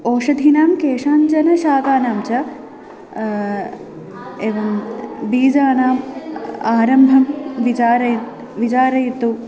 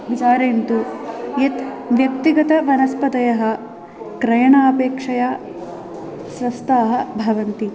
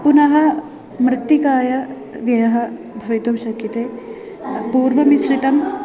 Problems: background sounds at intervals